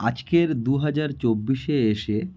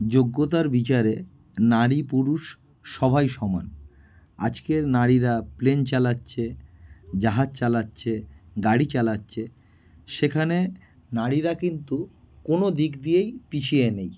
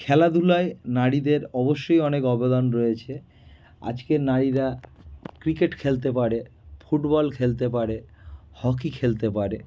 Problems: none marked